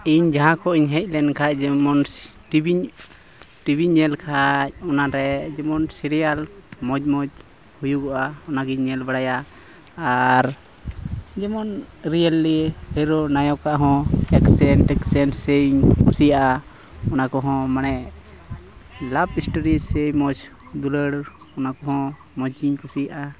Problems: constant background noise, background conversations at intervals